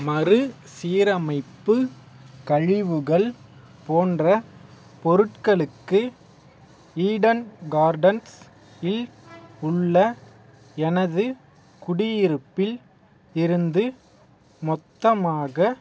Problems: none marked